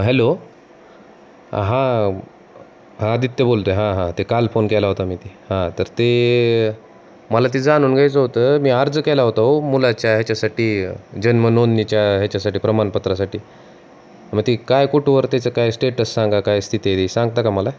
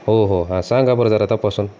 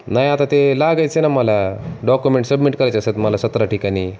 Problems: constant background noise